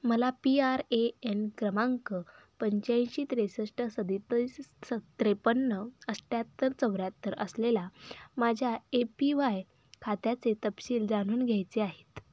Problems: background sounds at intervals